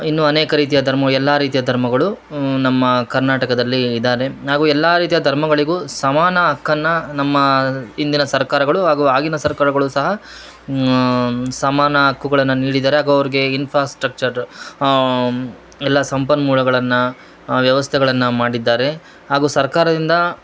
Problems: none marked